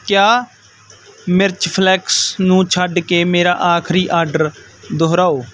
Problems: constant background noise